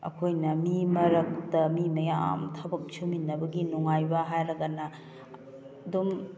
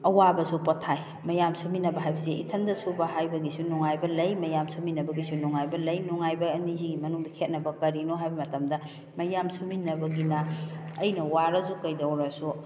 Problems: background conversations at intervals